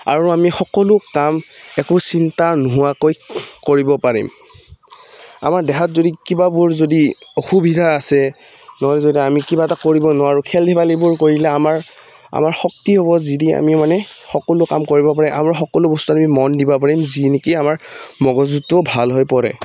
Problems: background sounds at intervals